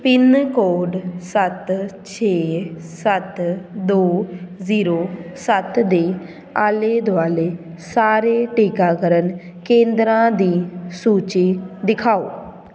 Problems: background sounds at intervals, background conversations at intervals